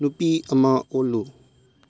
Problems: low volume